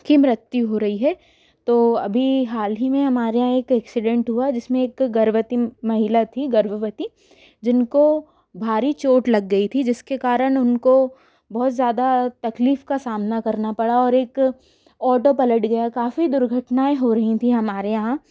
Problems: background sounds at intervals